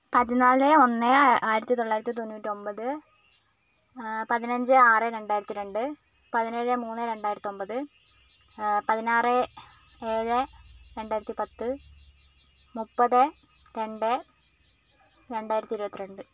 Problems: background sounds at intervals